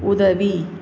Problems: constant background noise